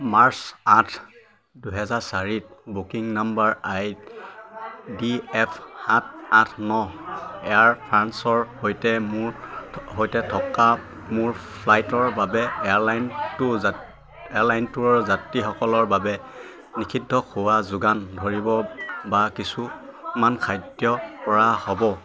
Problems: constant background noise, continuous background conversations